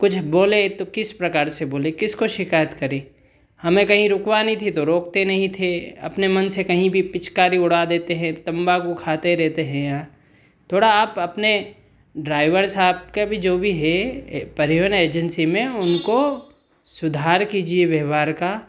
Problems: background sounds at intervals